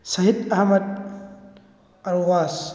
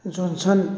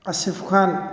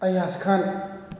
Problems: background sounds at intervals